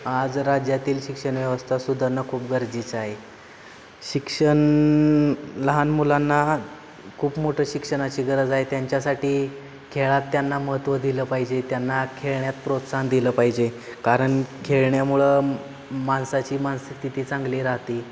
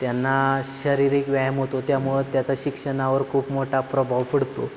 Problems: constant background noise